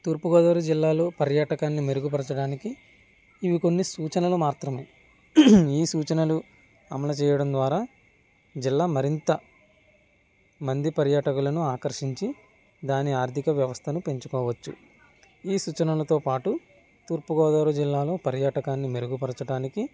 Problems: background sounds at intervals